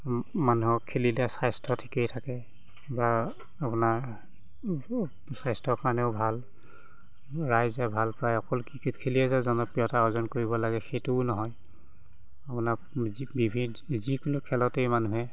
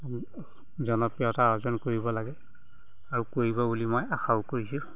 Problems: background sounds at intervals